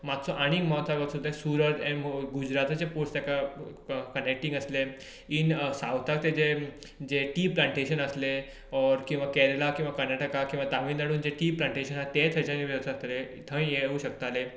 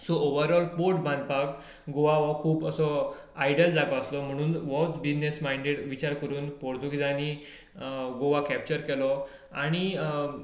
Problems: none marked